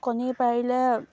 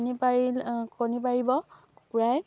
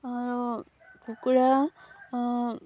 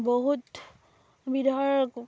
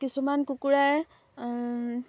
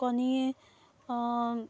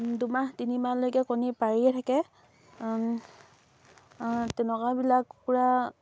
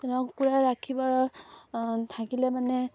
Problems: none marked